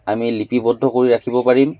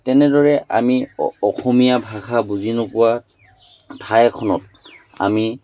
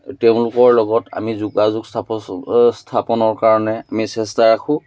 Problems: none marked